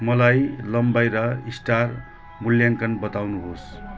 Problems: constant background noise